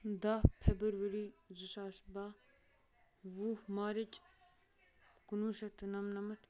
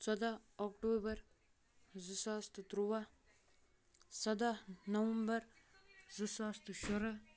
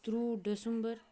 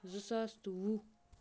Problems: background conversations at intervals